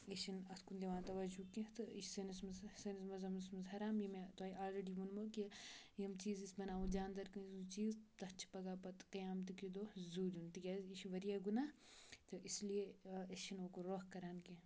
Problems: background sounds at intervals, low volume